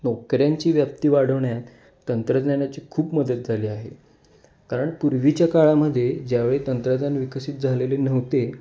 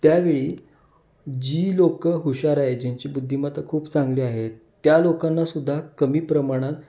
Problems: background sounds at intervals